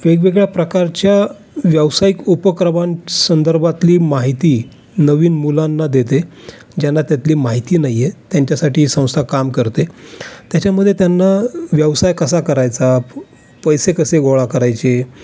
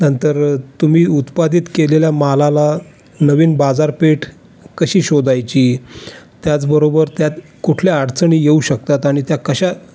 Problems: constant background noise